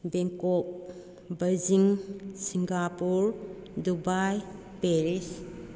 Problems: none marked